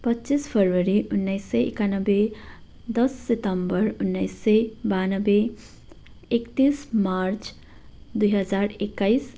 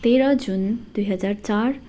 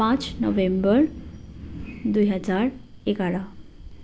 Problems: constant background noise